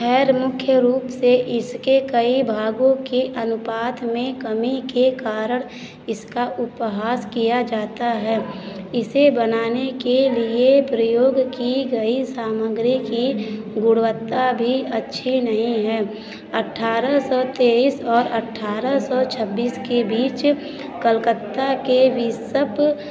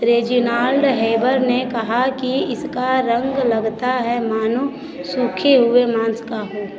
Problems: none marked